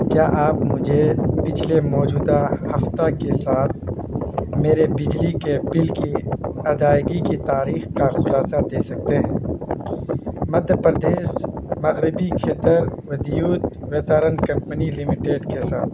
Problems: constant background noise